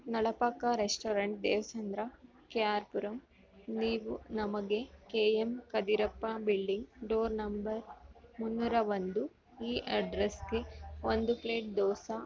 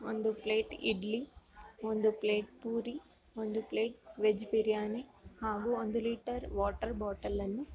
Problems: background sounds at intervals